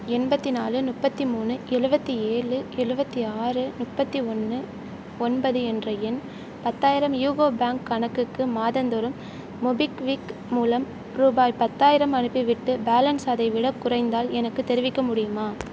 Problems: none marked